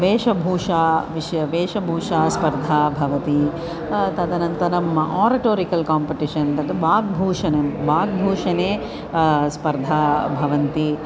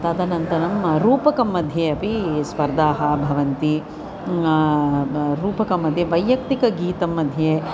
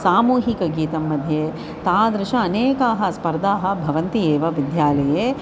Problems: constant background noise, continuous background conversations